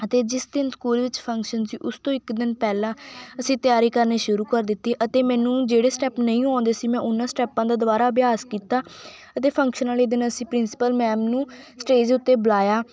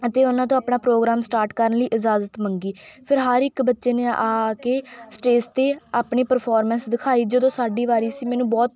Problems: none marked